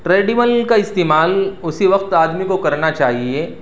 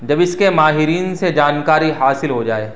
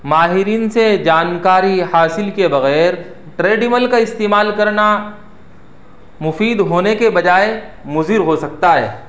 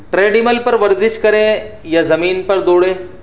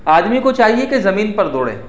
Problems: none marked